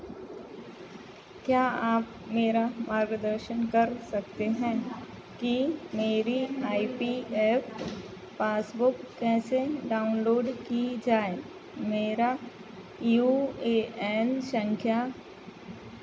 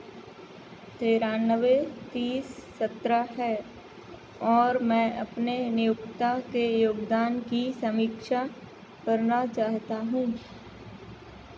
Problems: none marked